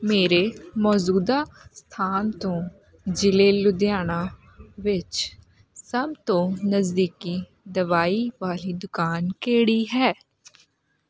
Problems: constant background noise